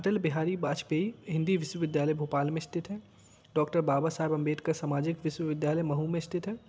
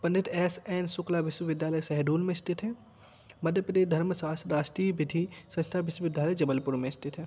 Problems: background sounds at intervals